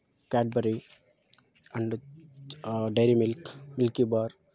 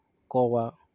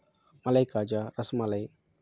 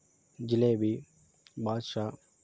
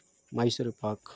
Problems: constant background noise